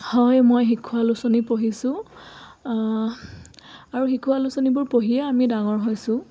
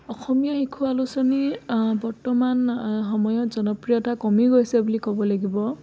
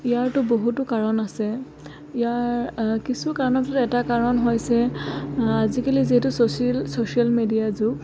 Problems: constant background noise, background conversations at intervals